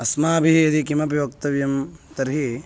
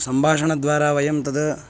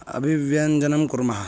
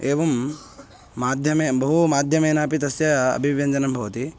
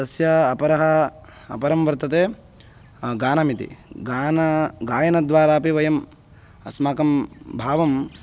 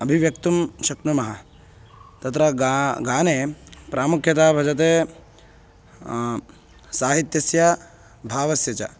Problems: constant background noise